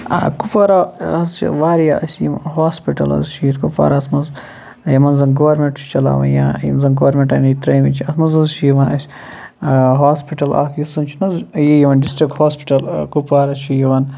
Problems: constant background noise